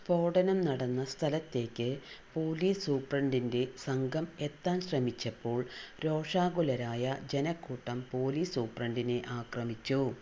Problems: constant background noise, low volume